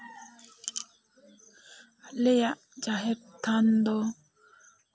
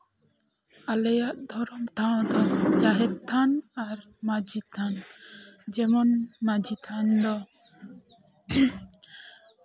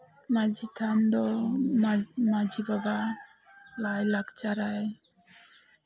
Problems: low volume